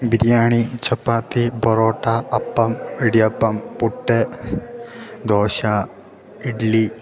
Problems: background sounds at intervals